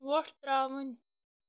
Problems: background sounds at intervals